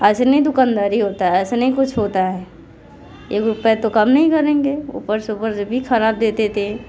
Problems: none marked